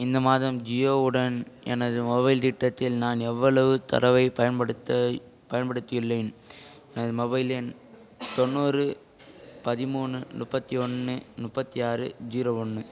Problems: background conversations at intervals